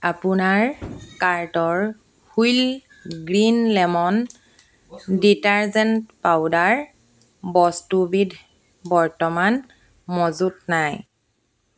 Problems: constant background noise